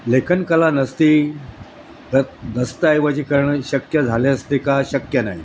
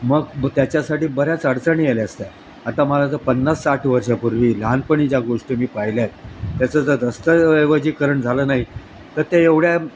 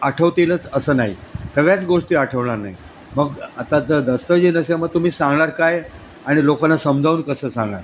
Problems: constant background noise